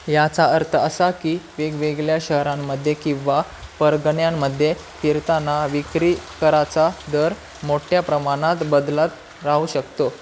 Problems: constant background noise